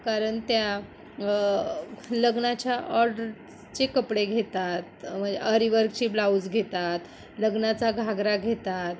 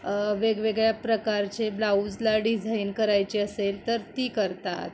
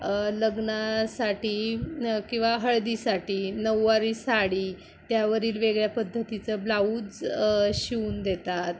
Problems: constant background noise